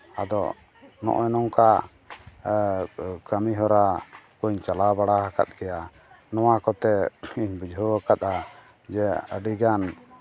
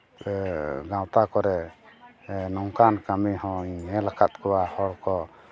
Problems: none marked